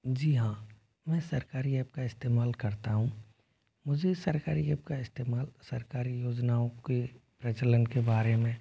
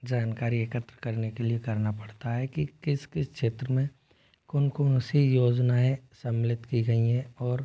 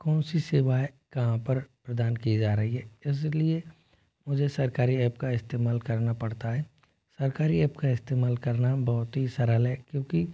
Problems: none marked